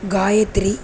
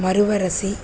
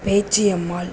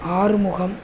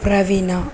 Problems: constant background noise